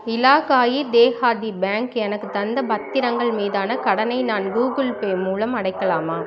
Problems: continuous background conversations